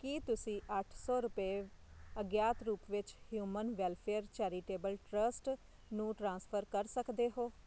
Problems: constant background noise